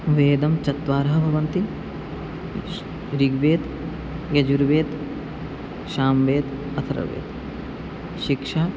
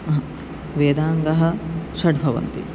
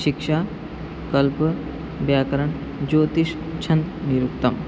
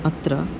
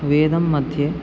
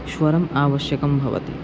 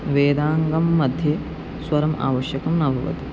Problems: constant background noise